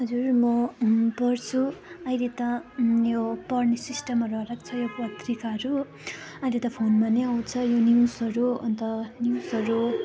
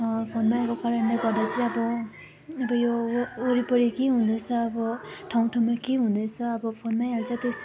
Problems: continuous background conversations